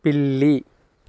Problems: none marked